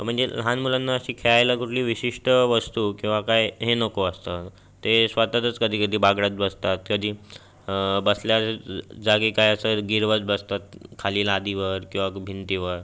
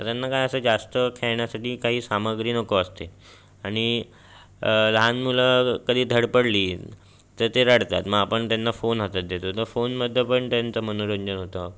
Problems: constant background noise, background conversations at intervals